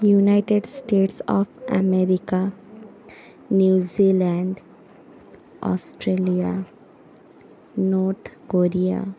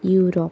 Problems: constant background noise, continuous background conversations